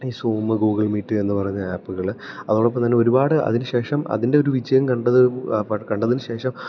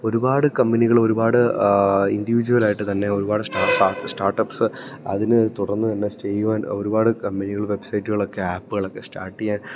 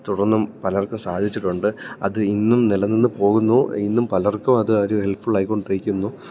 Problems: low volume